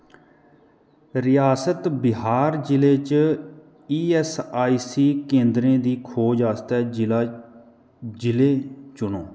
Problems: none marked